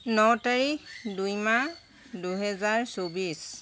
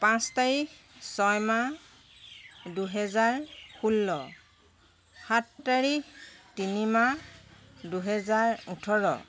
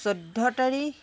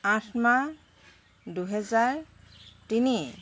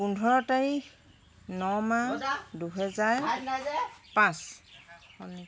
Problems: background sounds at intervals